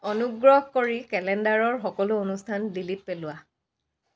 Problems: background sounds at intervals